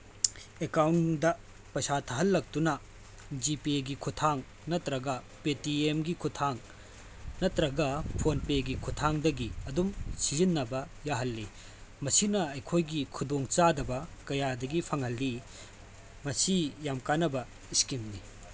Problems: constant background noise